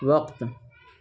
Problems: constant background noise